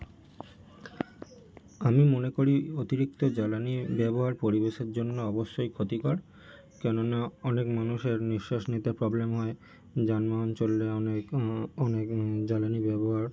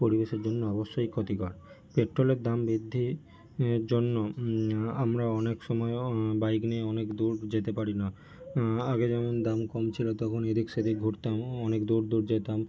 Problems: background sounds at intervals